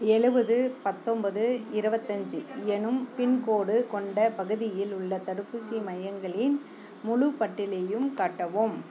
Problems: low volume